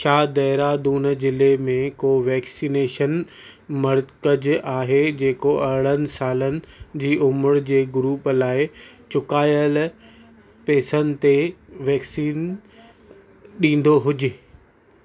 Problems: constant background noise, continuous background conversations